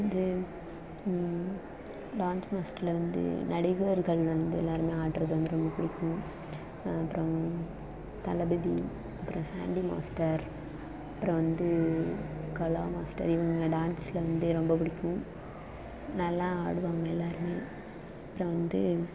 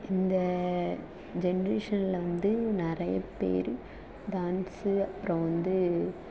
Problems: constant background noise, low volume